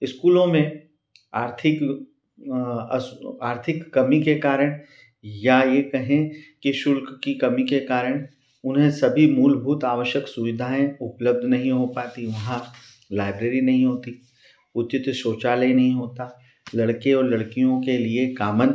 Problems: none marked